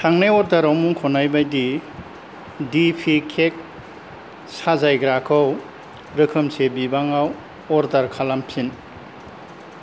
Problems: none marked